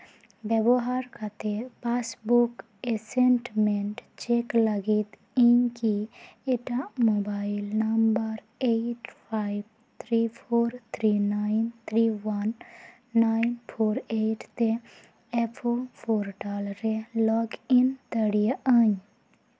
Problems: background sounds at intervals